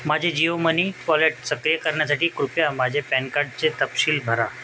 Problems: constant background noise